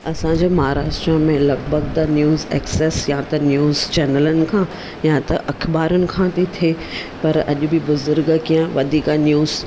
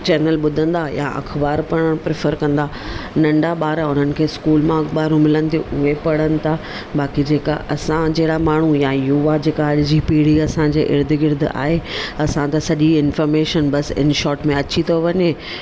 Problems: none marked